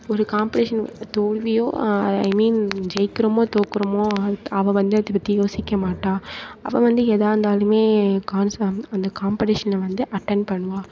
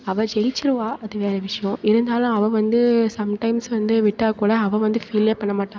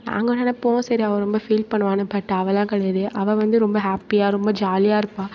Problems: continuous background conversations